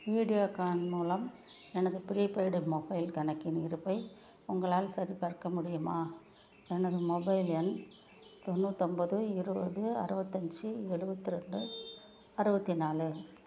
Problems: background sounds at intervals